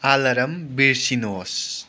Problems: background sounds at intervals